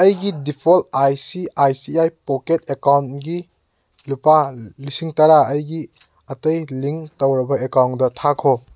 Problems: none marked